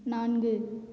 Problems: low volume